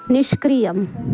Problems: constant background noise